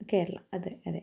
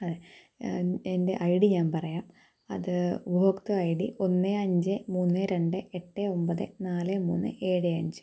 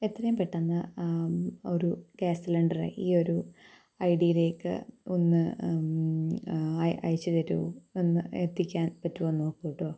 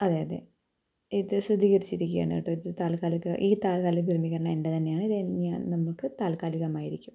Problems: low volume